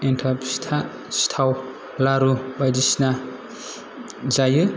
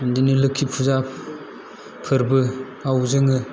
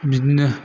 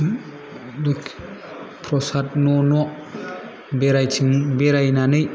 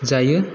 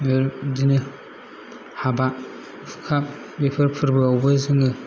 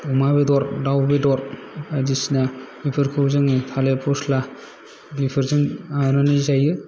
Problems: background sounds at intervals, low volume